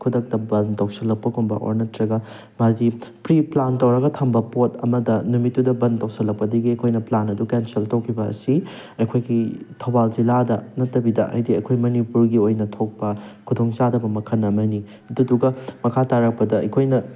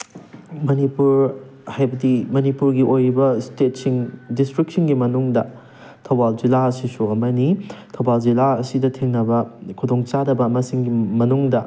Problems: background sounds at intervals